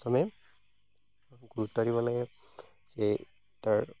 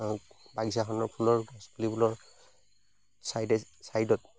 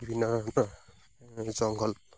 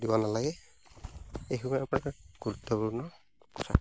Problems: constant background noise